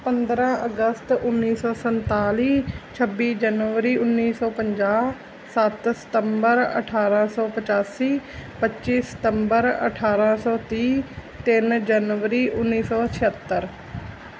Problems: none marked